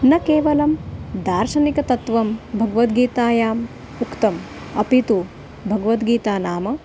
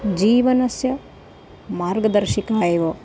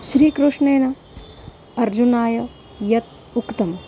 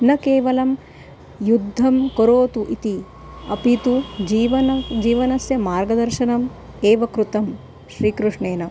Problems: constant background noise